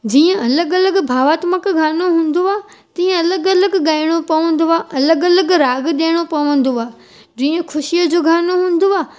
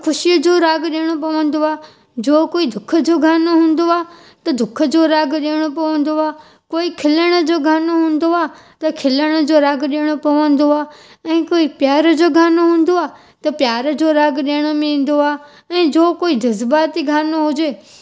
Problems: background sounds at intervals